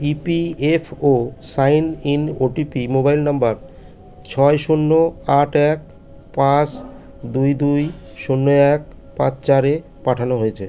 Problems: background sounds at intervals